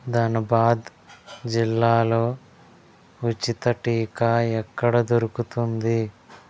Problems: background sounds at intervals